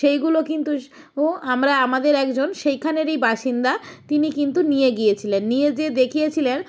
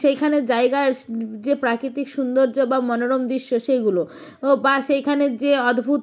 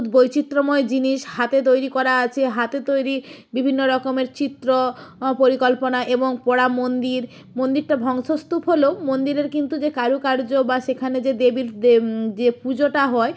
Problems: background sounds at intervals